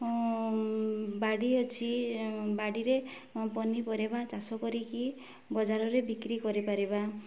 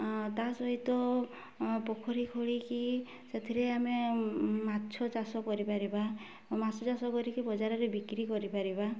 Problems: low volume